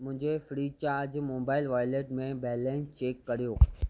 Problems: none marked